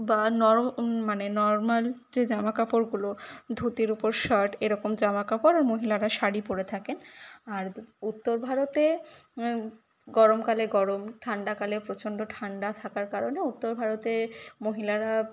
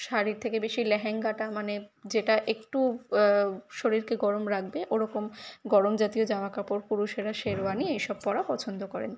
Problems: background sounds at intervals, background conversations at intervals